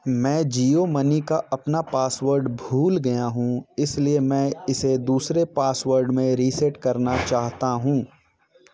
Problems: none marked